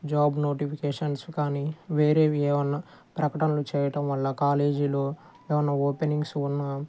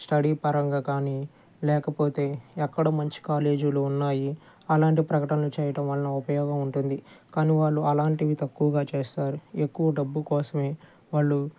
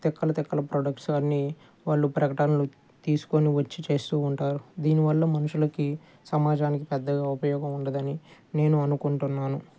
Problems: none marked